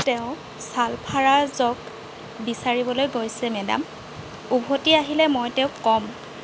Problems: constant background noise